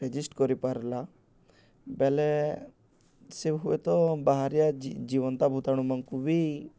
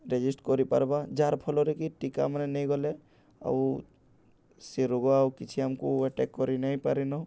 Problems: none marked